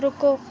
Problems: constant background noise